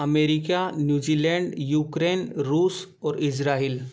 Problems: background sounds at intervals